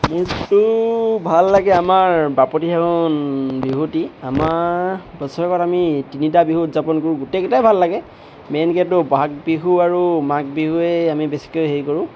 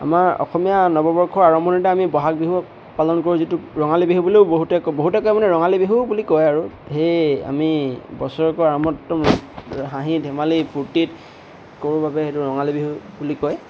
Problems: constant background noise